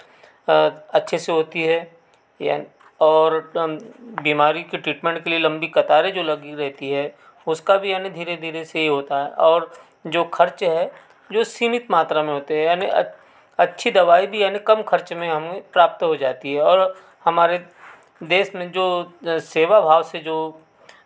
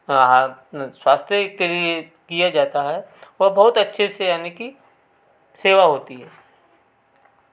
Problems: constant background noise